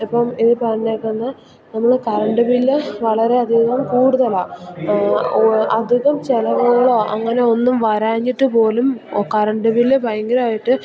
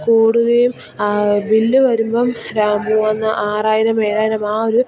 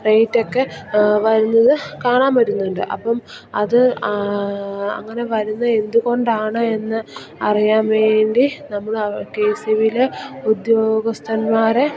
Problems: constant background noise, low volume